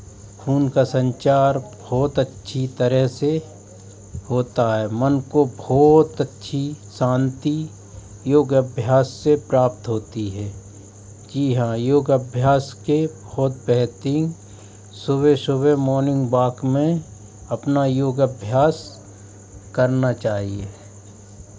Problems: constant background noise